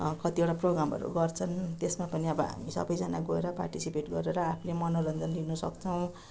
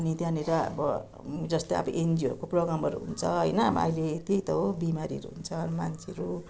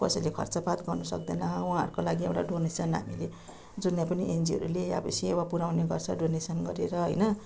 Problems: none marked